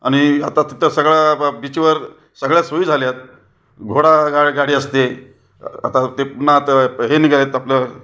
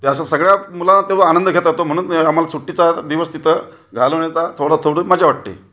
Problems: none marked